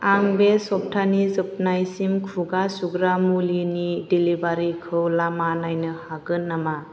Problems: constant background noise